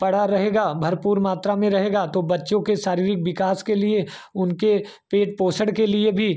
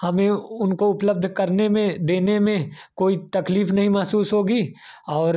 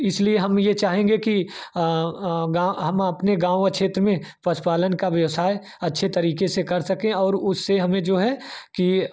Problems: constant background noise